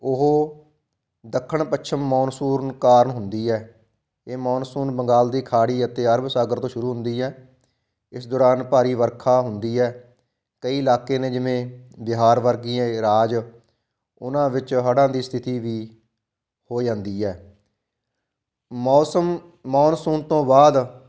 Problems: background sounds at intervals